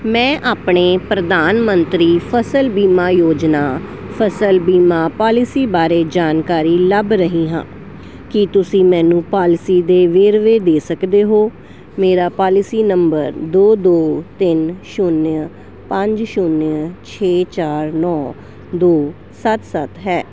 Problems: none marked